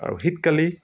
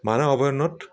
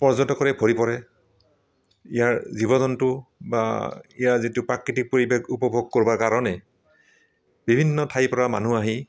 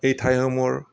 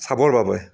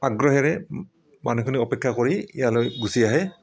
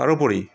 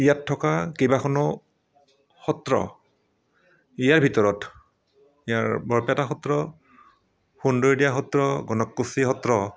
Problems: none marked